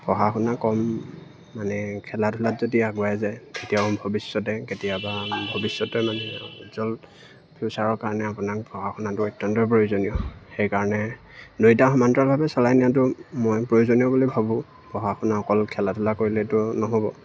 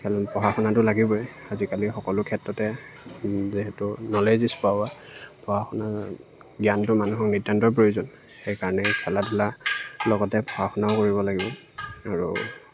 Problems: background sounds at intervals